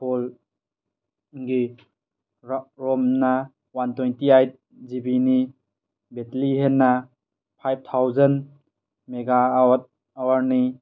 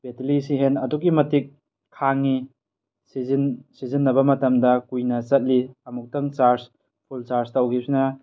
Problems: none marked